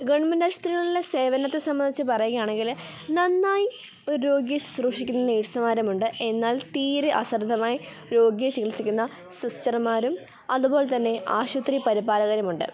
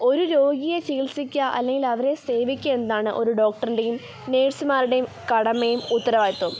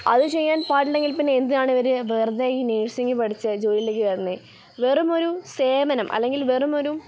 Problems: none marked